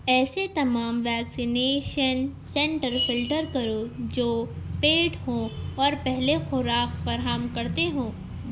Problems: constant background noise